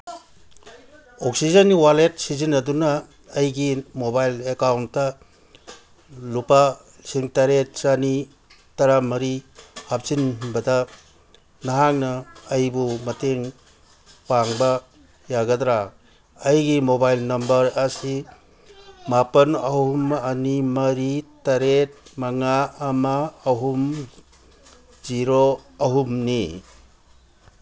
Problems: none marked